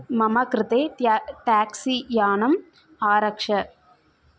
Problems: none marked